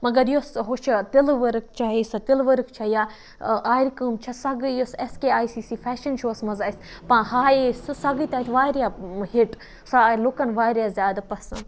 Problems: constant background noise